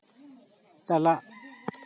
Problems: background sounds at intervals